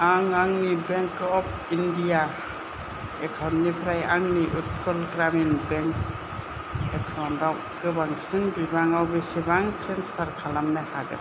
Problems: constant background noise, low volume